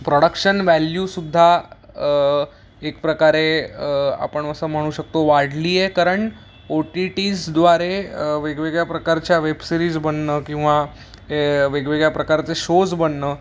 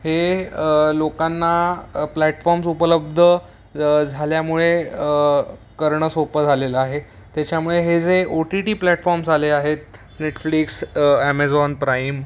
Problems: constant background noise